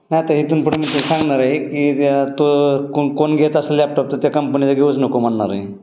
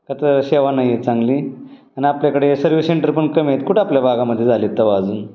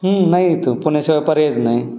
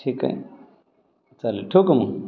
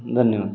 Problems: constant background noise, continuous background conversations